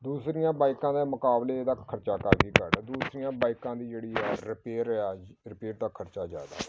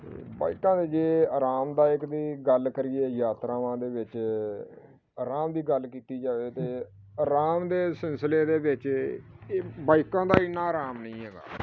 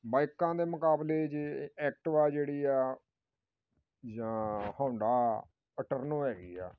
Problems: none marked